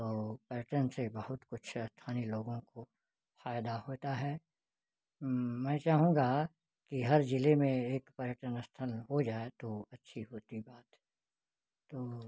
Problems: none marked